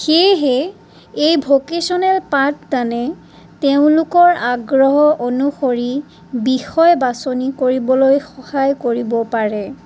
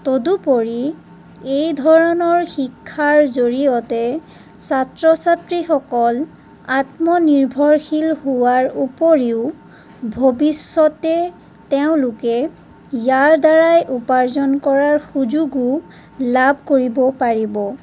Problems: none marked